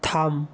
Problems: constant background noise